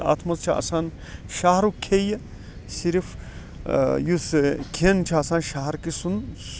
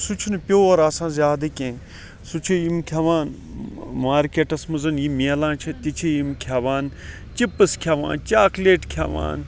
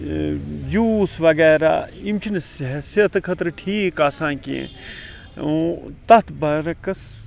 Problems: background sounds at intervals, background conversations at intervals